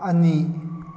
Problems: none marked